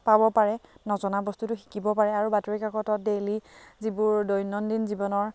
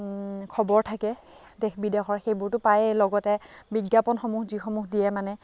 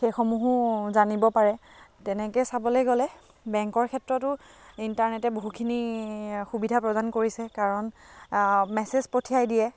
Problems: none marked